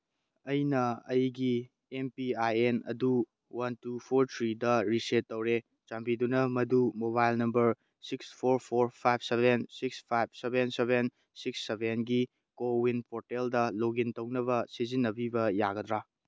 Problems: none marked